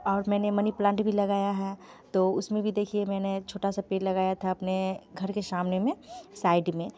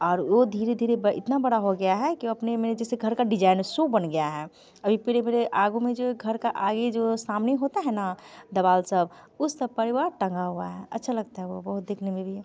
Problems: background sounds at intervals, continuous background conversations